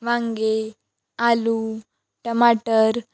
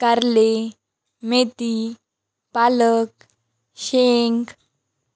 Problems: none marked